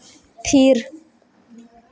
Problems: constant background noise, echo